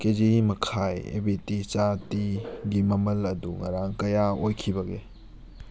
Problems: background sounds at intervals